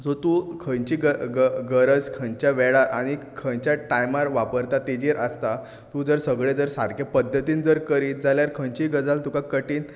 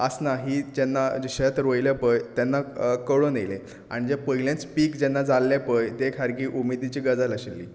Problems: none marked